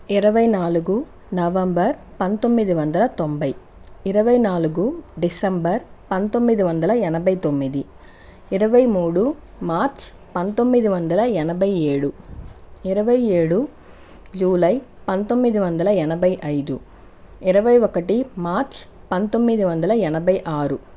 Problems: constant background noise